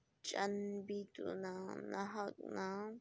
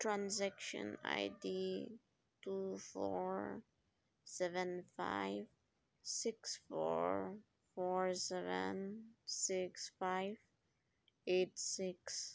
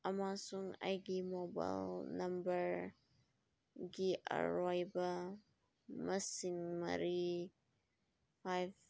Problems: none marked